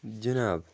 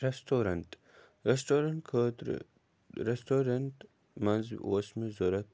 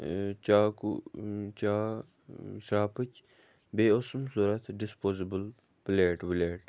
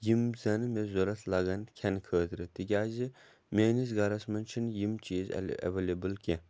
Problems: background sounds at intervals